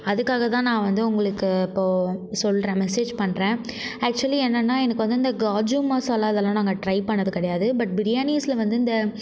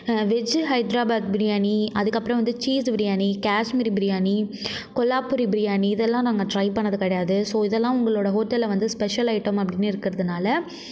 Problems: background sounds at intervals